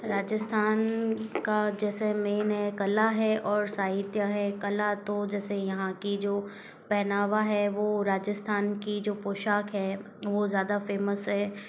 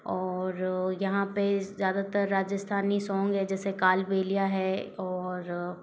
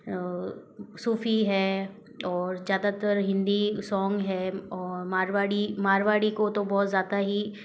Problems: none marked